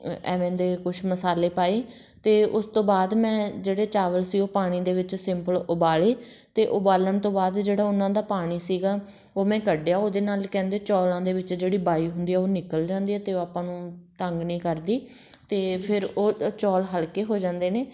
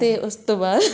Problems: background conversations at intervals